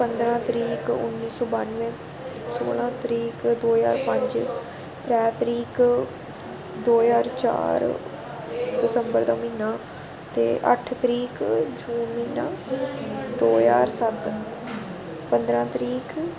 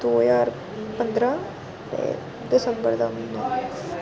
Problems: constant background noise, background conversations at intervals